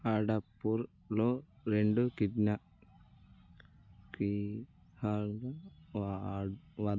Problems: low volume